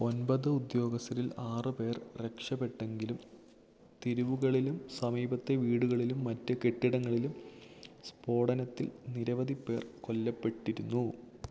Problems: none marked